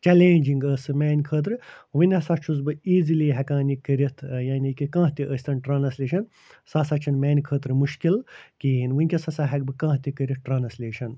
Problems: none marked